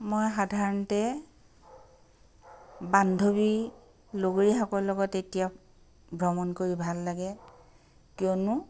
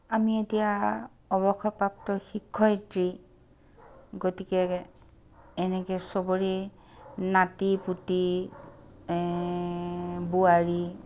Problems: none marked